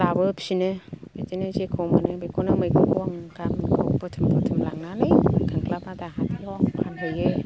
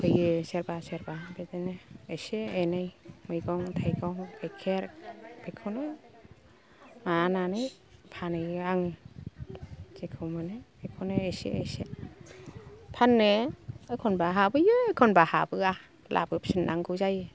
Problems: low volume